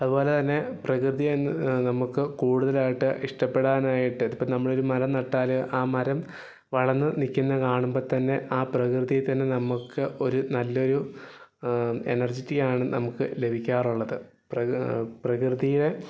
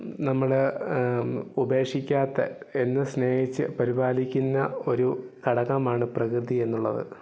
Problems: none marked